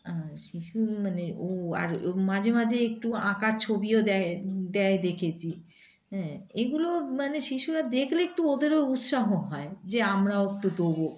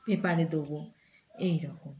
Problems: constant background noise